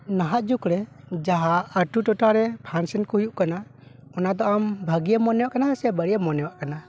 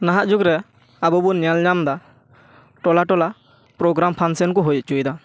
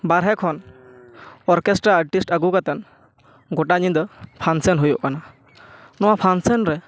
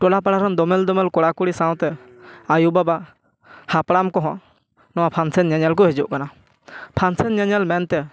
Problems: background sounds at intervals